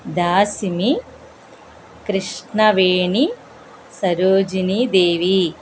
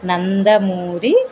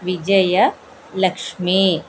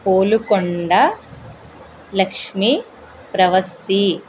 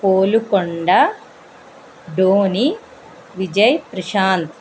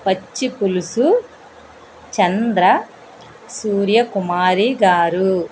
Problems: constant background noise